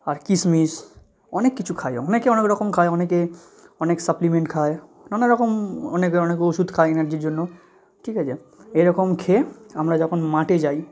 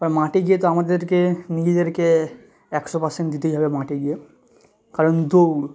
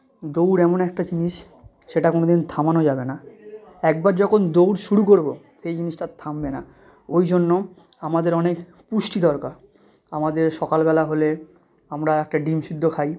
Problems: none marked